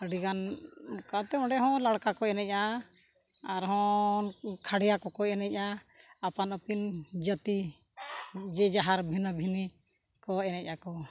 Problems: background sounds at intervals